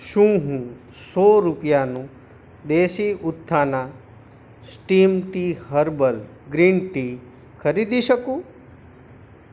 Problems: constant background noise